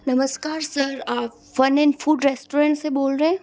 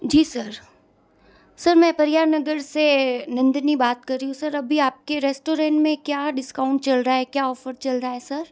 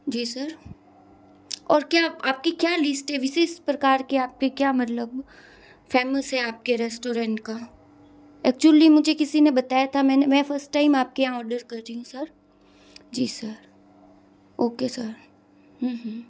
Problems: none marked